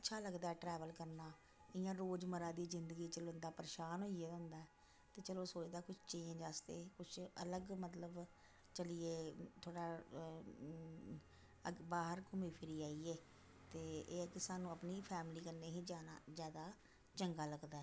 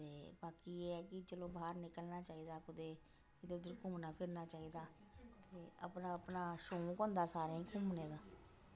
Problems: constant background noise, echo